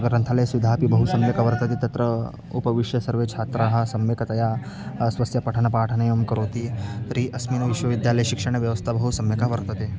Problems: constant background noise, continuous background conversations